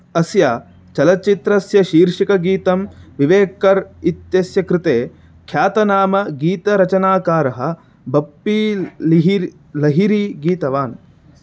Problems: constant background noise